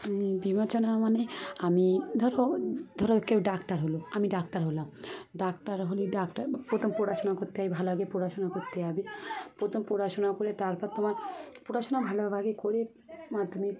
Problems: constant background noise, continuous background conversations